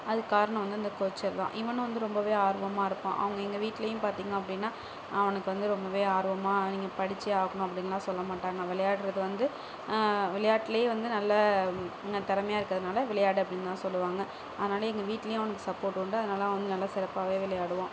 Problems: none marked